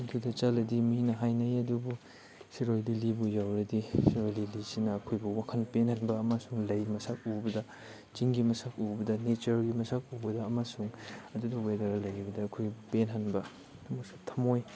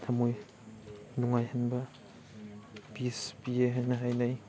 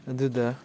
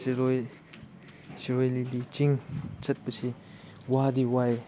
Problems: background sounds at intervals